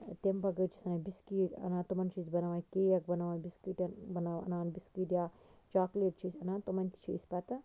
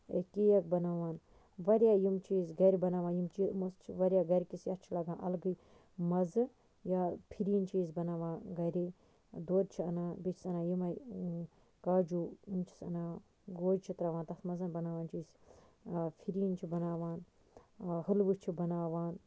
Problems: none marked